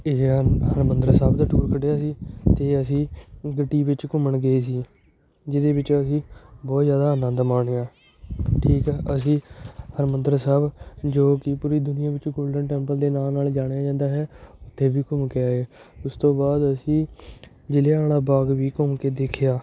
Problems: constant background noise, background conversations at intervals